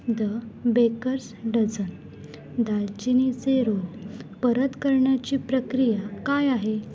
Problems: none marked